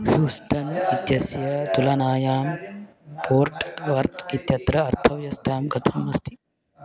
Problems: constant background noise, continuous background conversations